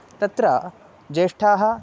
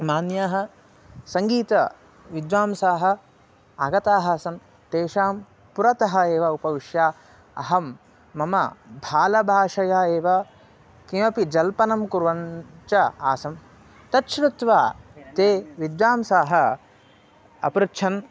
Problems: constant background noise